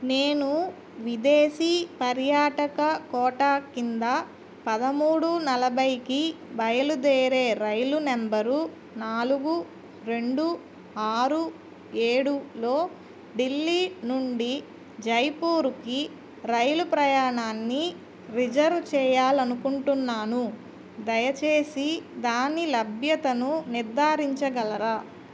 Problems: none marked